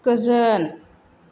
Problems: none marked